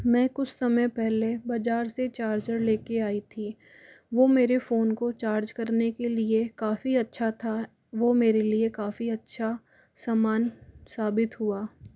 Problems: none marked